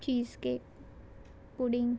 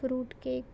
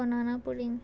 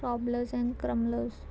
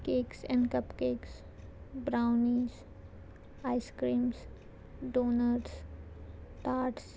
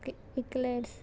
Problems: none marked